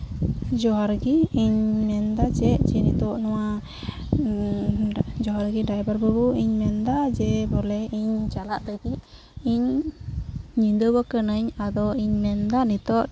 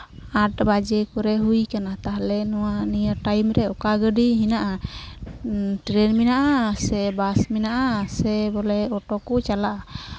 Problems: background sounds at intervals